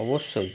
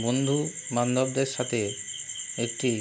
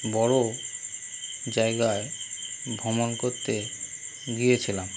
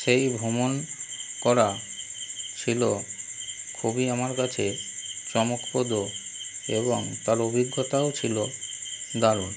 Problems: constant background noise